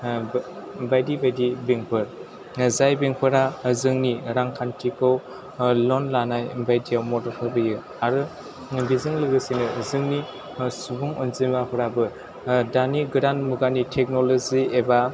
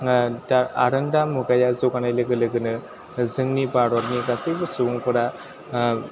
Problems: constant background noise, background conversations at intervals